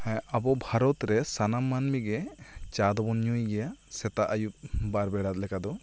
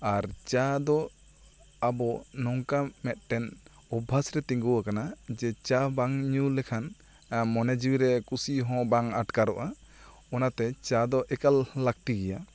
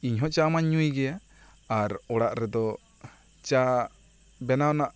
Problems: constant background noise